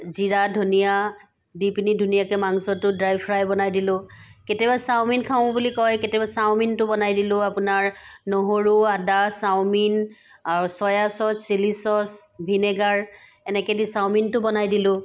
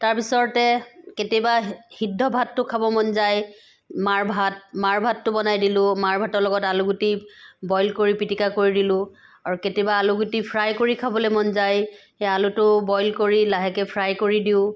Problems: none marked